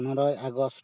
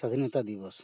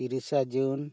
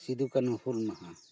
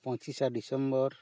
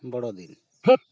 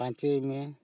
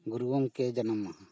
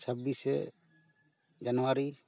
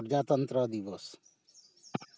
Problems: background sounds at intervals